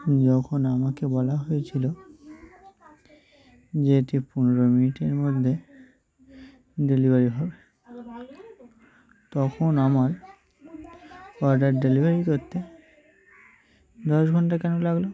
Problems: continuous background conversations